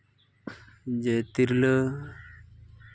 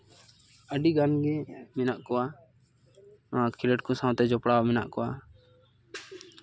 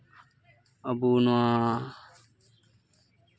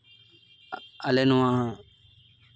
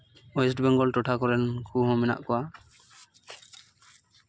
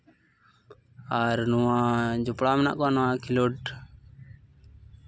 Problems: background sounds at intervals